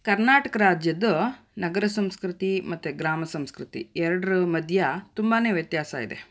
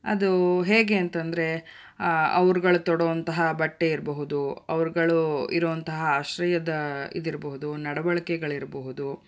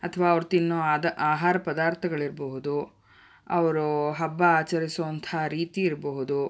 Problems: none marked